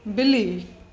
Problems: constant background noise, echo